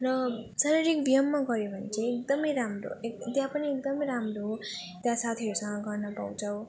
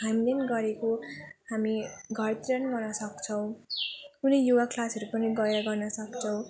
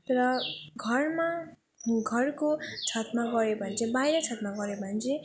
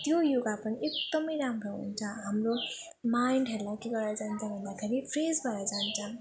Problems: continuous background conversations